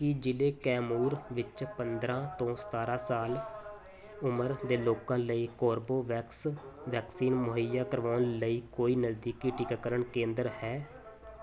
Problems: constant background noise